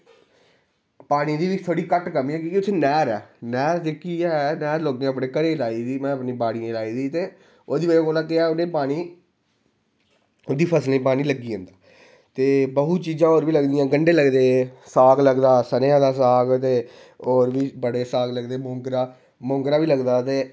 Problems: none marked